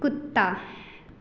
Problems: none marked